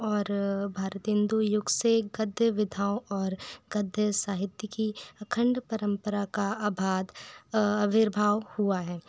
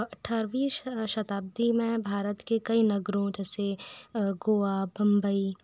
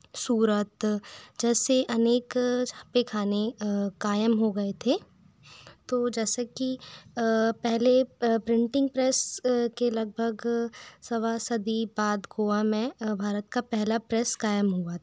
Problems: constant background noise